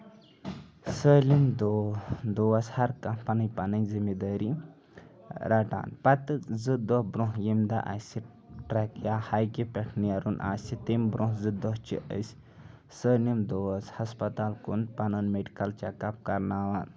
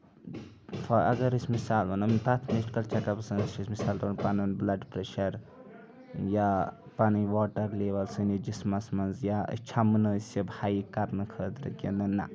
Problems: constant background noise, background conversations at intervals